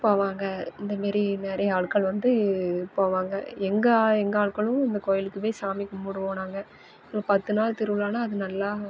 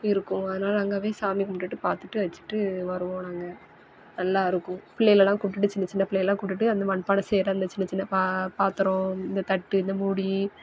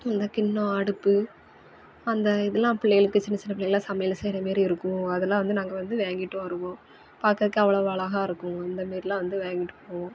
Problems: background sounds at intervals